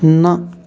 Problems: constant background noise